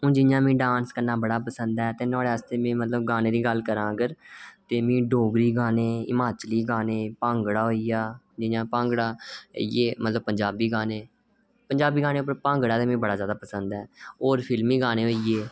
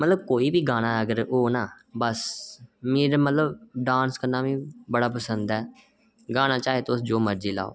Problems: none marked